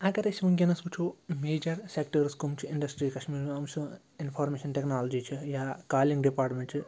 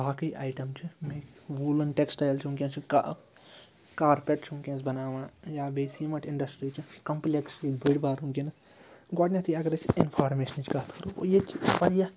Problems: background conversations at intervals